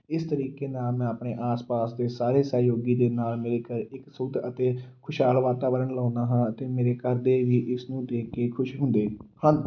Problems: background sounds at intervals